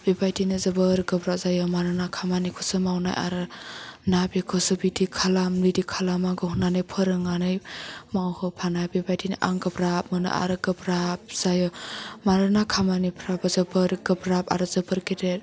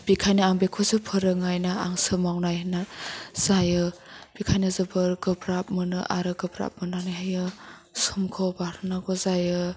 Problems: background sounds at intervals